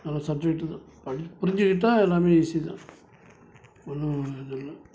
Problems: background sounds at intervals